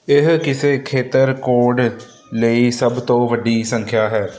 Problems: constant background noise